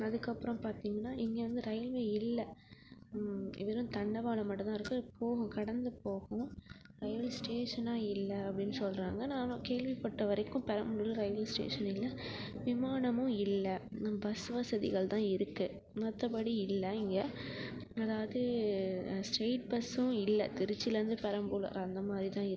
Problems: none marked